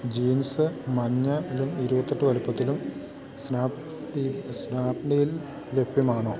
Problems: constant background noise